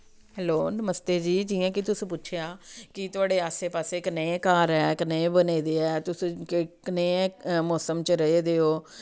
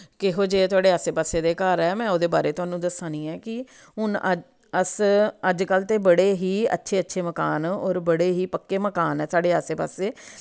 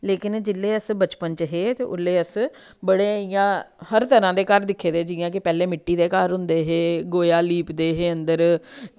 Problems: none marked